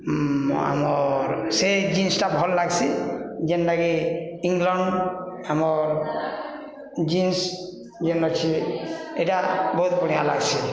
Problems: constant background noise